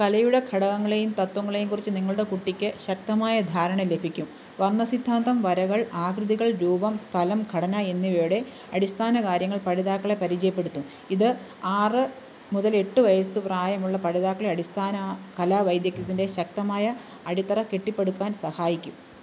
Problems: constant background noise